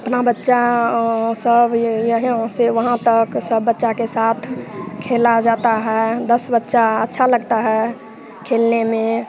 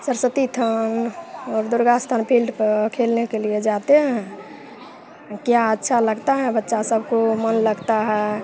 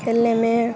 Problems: constant background noise, continuous background conversations